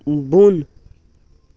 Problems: none marked